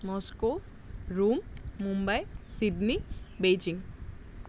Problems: none marked